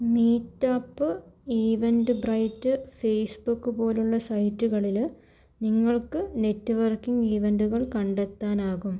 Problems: low volume